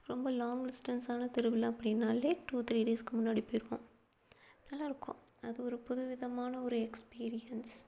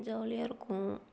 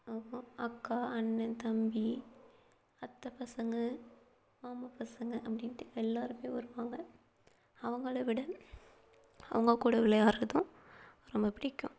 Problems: low volume